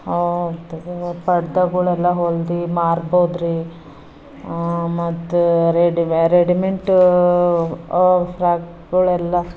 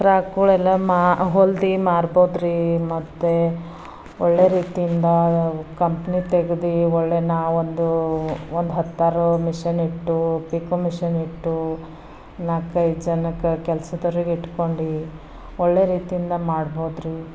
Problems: background sounds at intervals